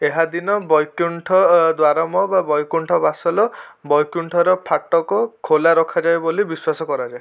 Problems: constant background noise